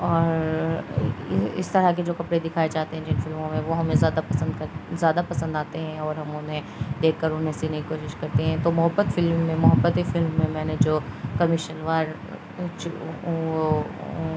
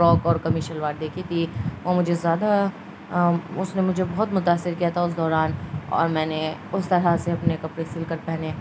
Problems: constant background noise